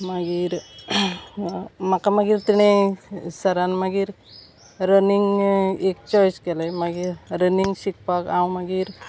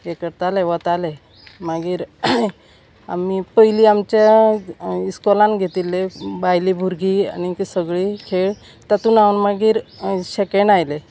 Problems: none marked